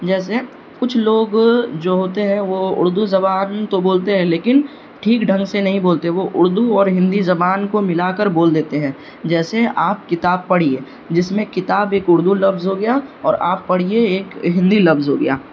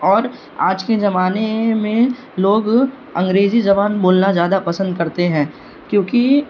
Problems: background sounds at intervals